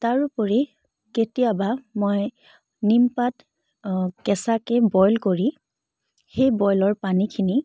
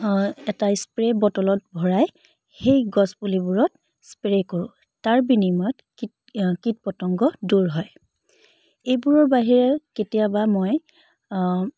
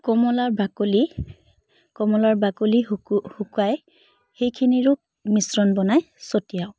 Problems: none marked